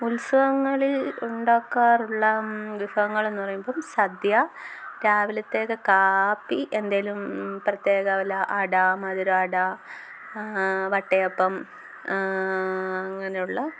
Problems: background sounds at intervals